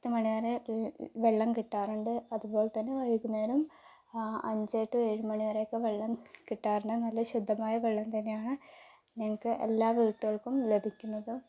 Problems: low volume